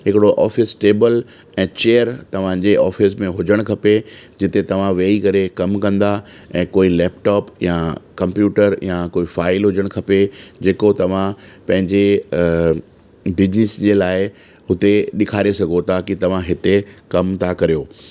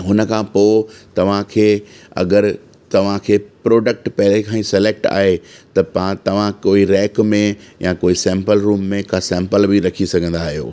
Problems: constant background noise, echo